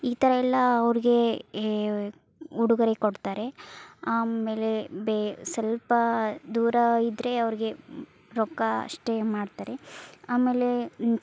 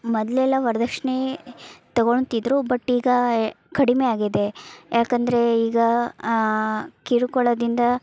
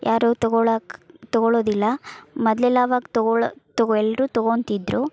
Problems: none marked